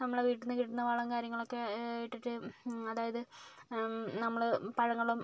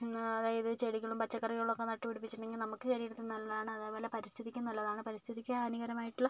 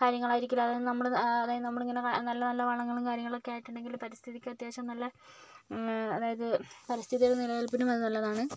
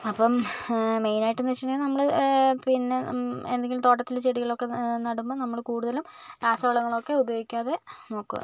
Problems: low volume